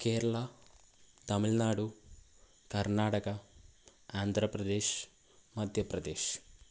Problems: none marked